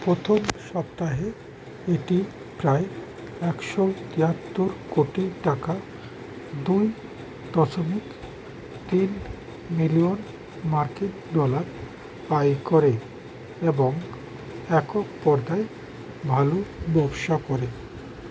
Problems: constant background noise